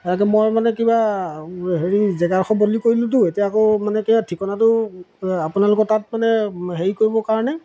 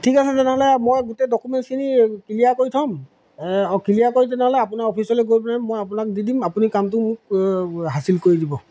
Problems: none marked